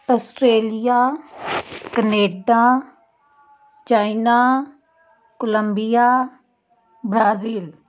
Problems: constant background noise